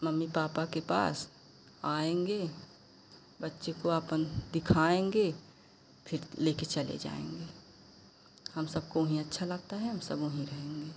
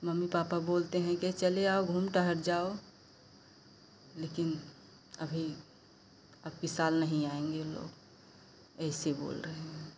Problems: constant background noise